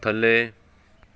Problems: background sounds at intervals, background conversations at intervals